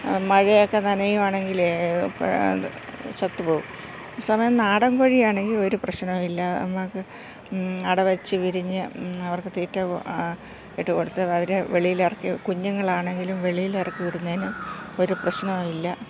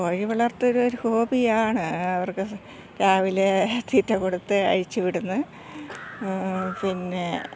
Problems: constant background noise, low volume